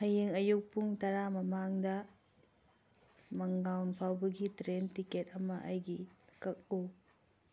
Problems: none marked